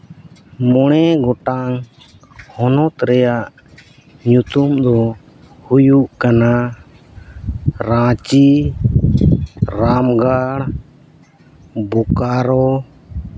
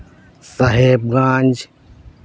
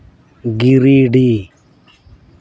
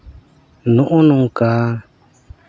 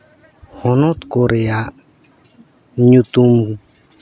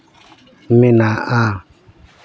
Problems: background sounds at intervals